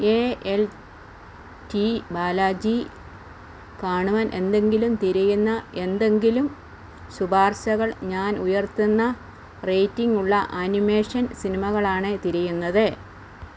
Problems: constant background noise